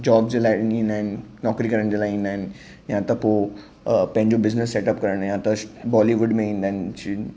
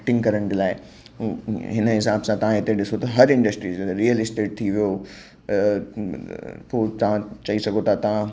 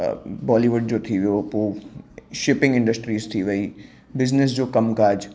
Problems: background sounds at intervals